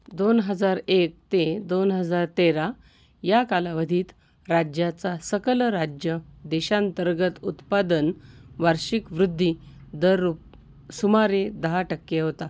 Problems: constant background noise